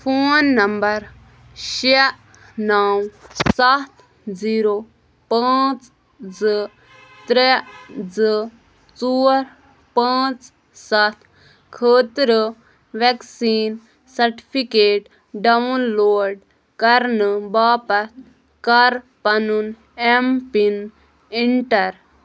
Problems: none marked